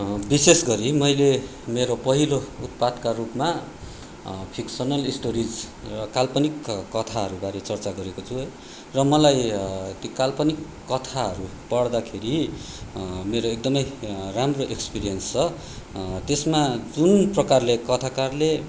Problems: none marked